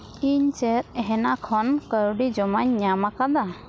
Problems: constant background noise